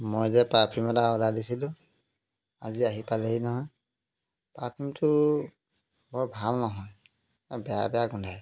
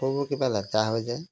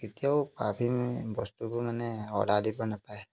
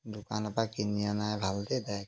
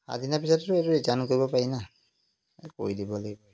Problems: background sounds at intervals